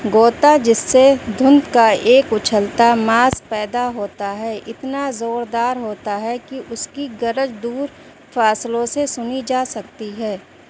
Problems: constant background noise